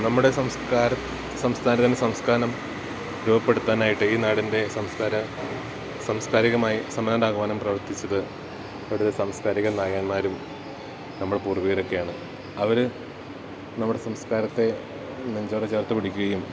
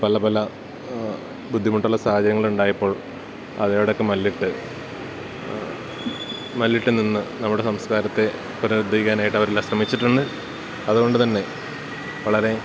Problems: constant background noise